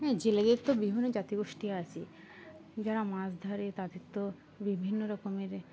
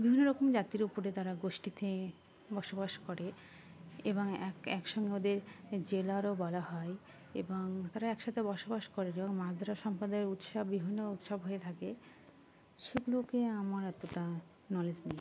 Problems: none marked